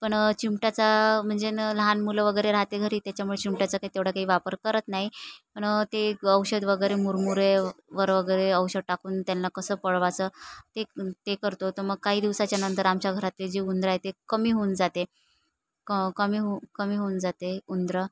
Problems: none marked